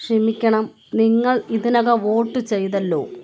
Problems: constant background noise